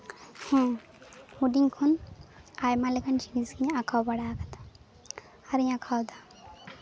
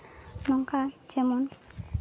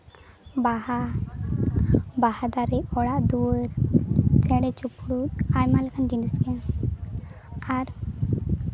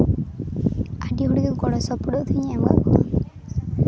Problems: none marked